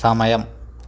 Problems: none marked